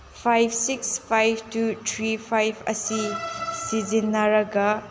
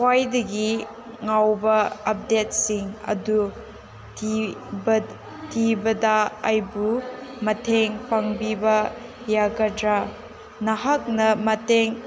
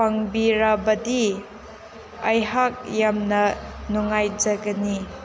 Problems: constant background noise, background conversations at intervals